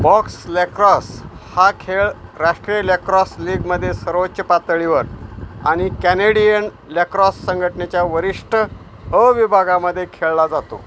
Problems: constant background noise